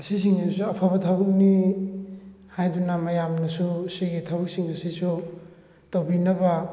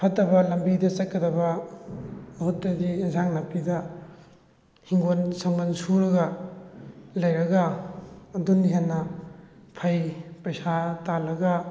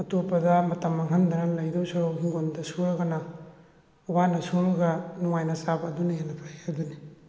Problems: background sounds at intervals